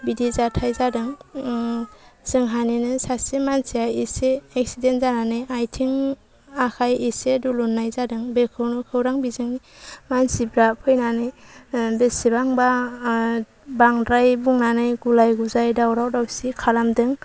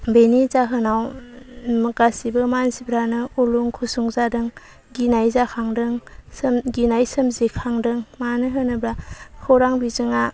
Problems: none marked